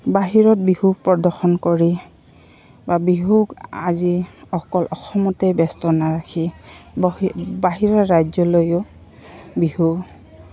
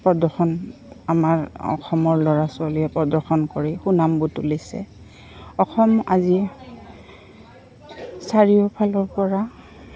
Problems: constant background noise, continuous background conversations